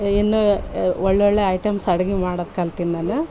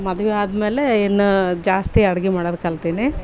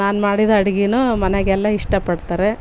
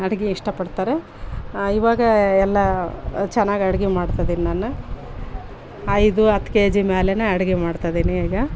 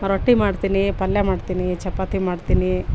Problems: background sounds at intervals